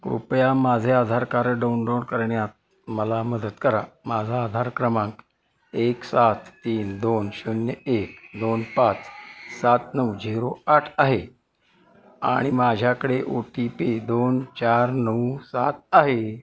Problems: constant background noise, continuous background conversations